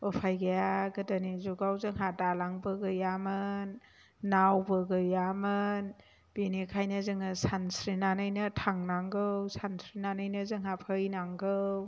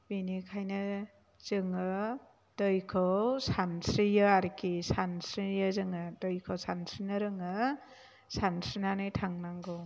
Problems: low volume